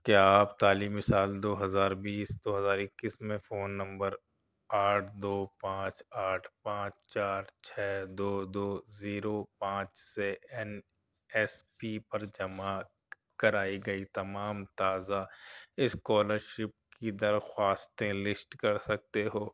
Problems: low volume